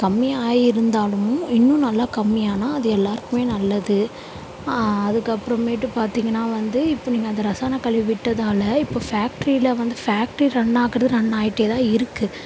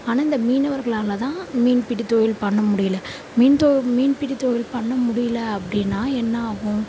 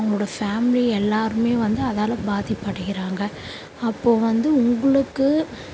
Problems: none marked